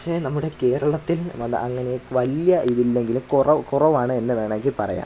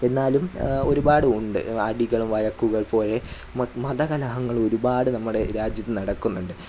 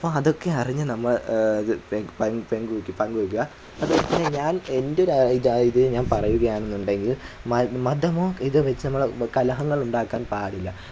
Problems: none marked